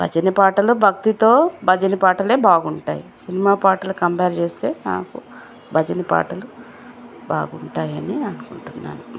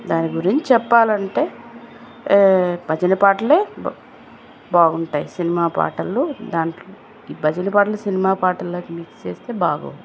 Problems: constant background noise